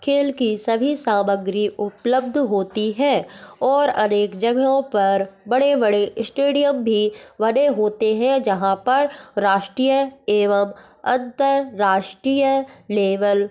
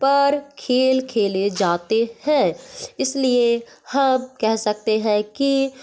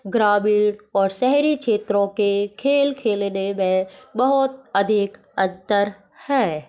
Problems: none marked